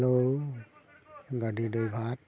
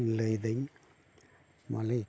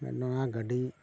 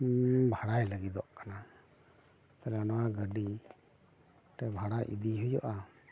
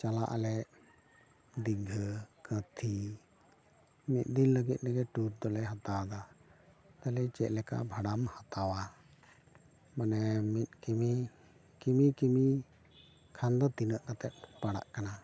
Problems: continuous background conversations